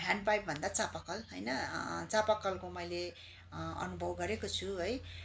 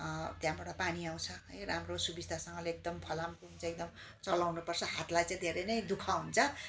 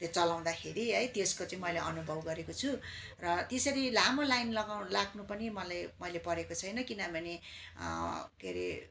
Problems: constant background noise, continuous background conversations